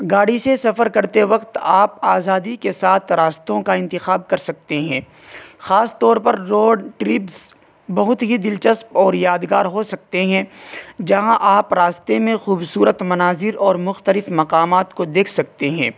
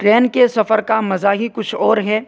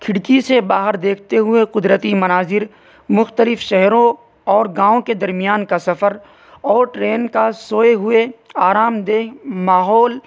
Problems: constant background noise